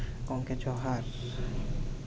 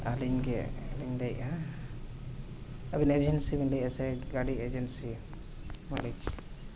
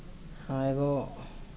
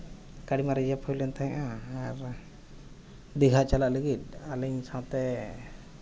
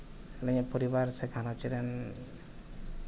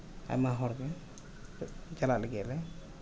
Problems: low volume